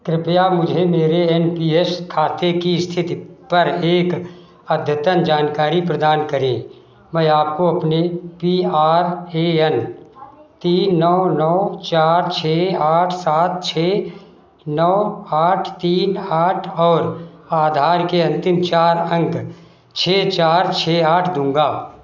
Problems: background sounds at intervals, echo